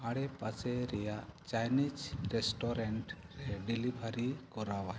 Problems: background sounds at intervals